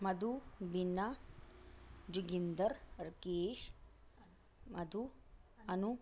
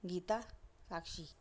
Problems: none marked